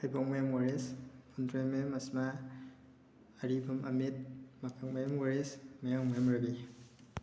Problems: none marked